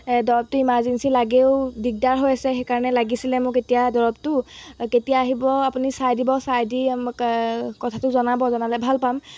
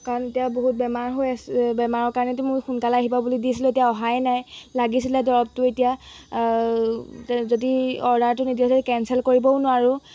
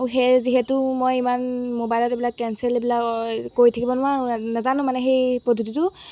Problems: background sounds at intervals